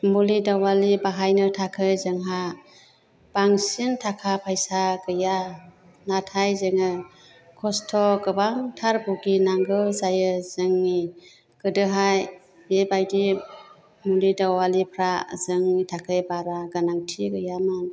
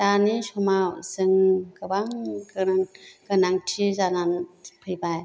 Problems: none marked